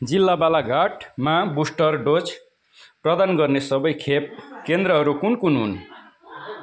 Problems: continuous background conversations